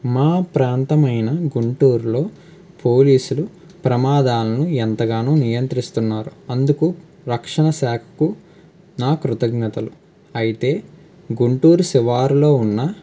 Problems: constant background noise